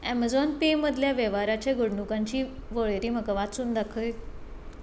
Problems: constant background noise